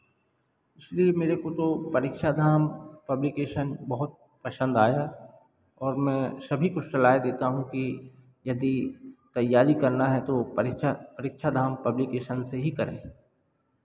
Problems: background sounds at intervals